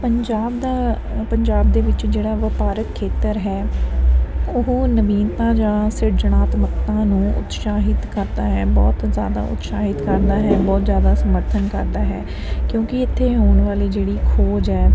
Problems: constant background noise